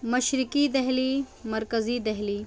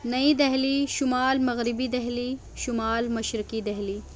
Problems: constant background noise